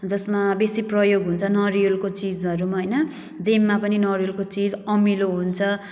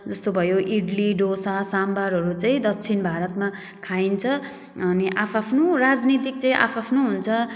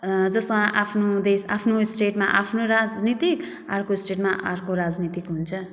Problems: background sounds at intervals